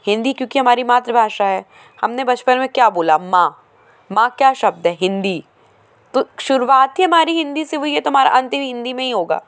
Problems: constant background noise, background conversations at intervals